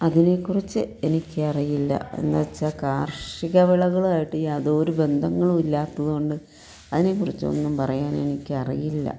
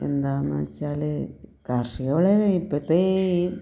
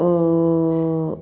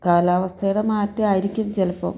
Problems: none marked